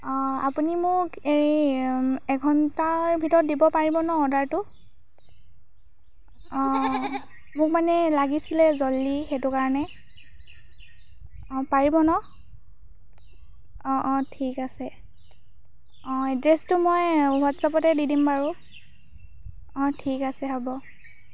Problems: none marked